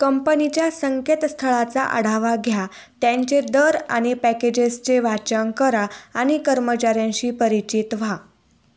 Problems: low volume